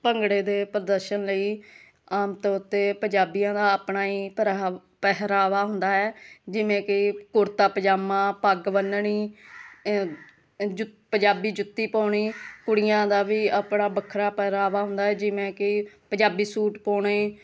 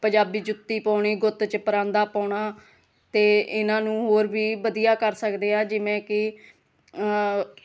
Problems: none marked